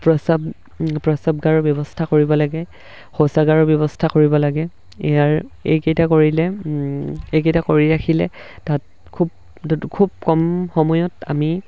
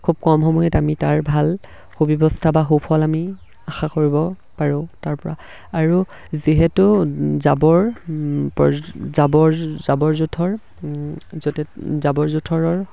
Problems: background sounds at intervals